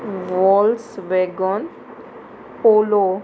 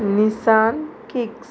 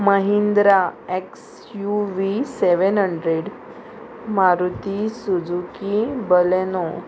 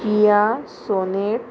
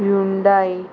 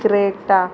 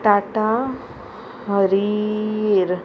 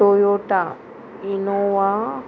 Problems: constant background noise, continuous background conversations